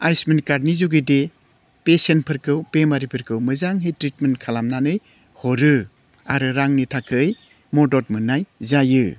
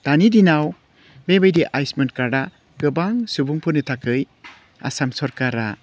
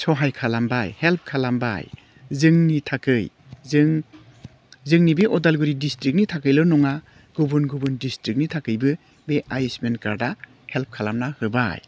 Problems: none marked